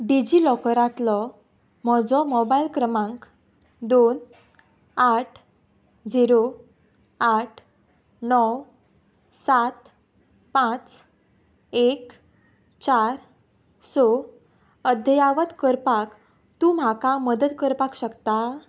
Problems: none marked